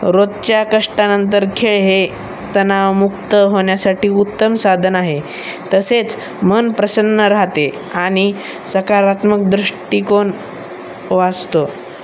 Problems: constant background noise, background conversations at intervals